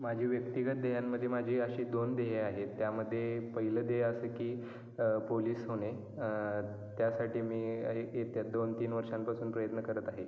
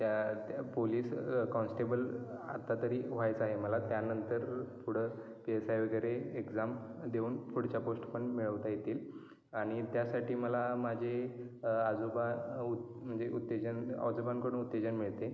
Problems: none marked